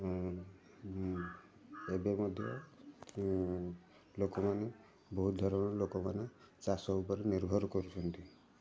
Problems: constant background noise, continuous background conversations